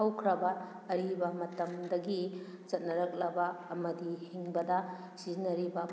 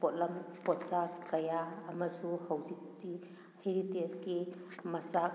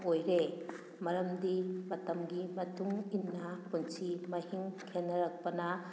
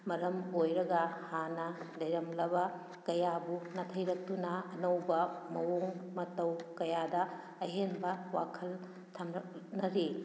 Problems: background sounds at intervals